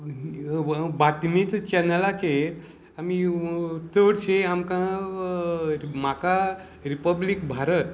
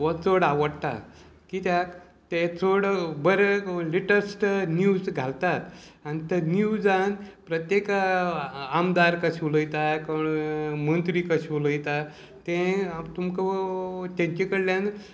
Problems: constant background noise, background conversations at intervals